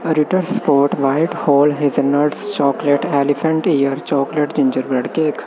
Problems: constant background noise